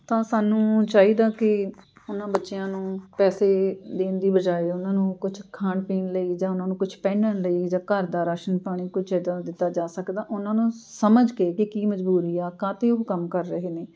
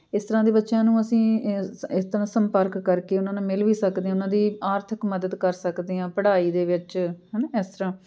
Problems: background sounds at intervals